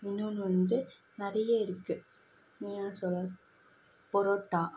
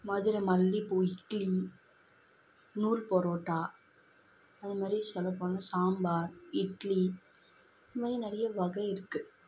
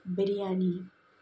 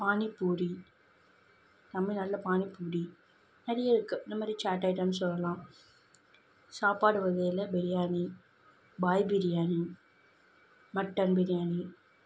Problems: background sounds at intervals